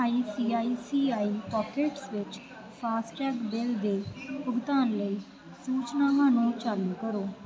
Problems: background sounds at intervals